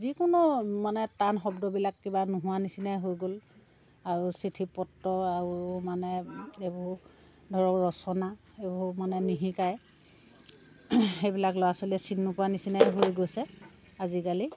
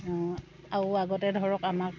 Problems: constant background noise, background conversations at intervals